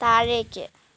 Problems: none marked